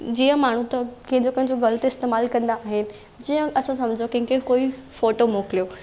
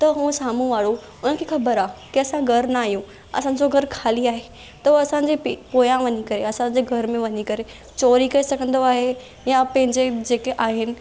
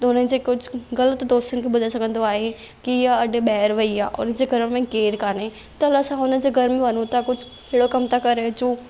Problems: constant background noise